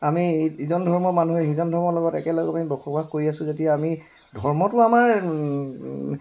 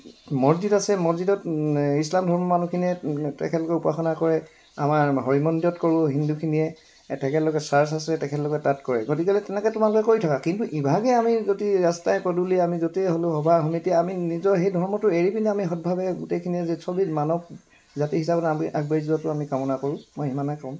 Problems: constant background noise